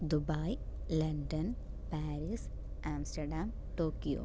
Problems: low volume